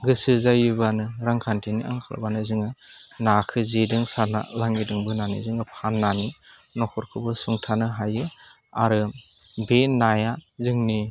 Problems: none marked